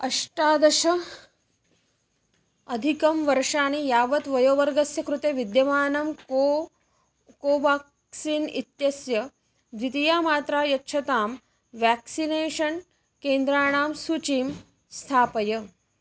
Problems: none marked